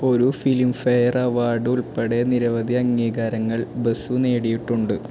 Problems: constant background noise